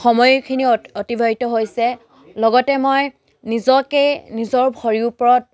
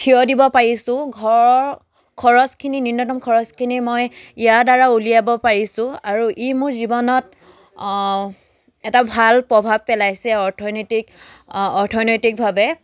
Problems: none marked